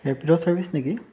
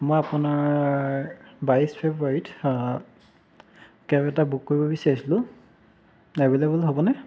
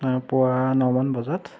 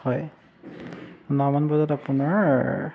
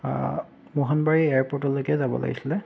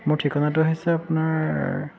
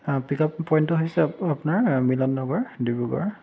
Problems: background sounds at intervals